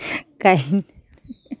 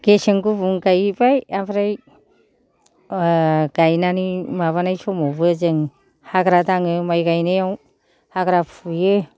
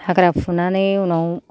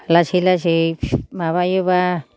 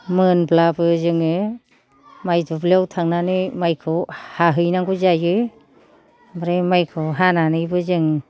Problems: low volume